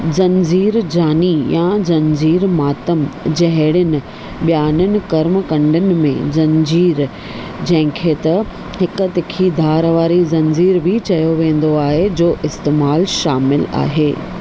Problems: none marked